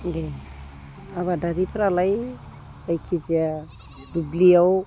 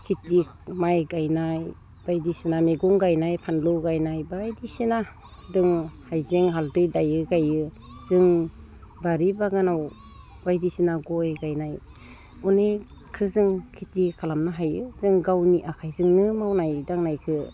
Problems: none marked